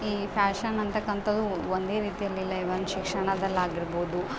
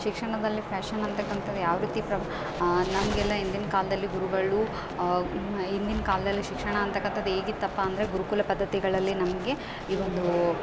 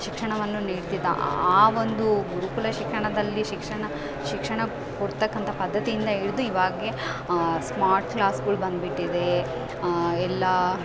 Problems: background sounds at intervals